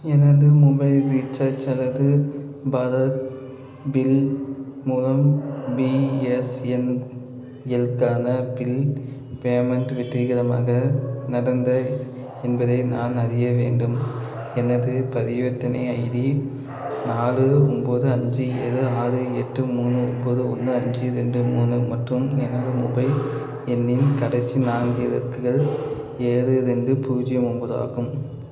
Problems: constant background noise